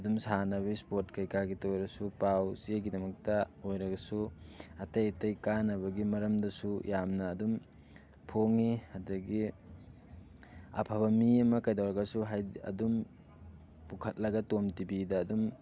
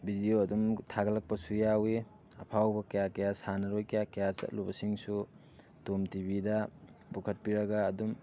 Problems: constant background noise